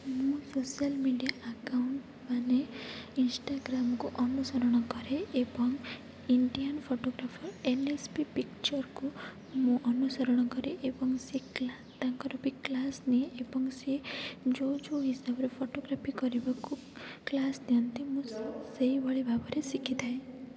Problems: none marked